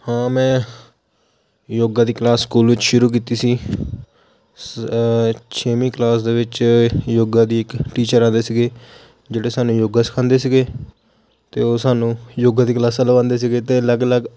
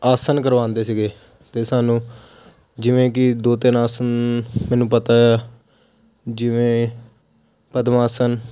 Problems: none marked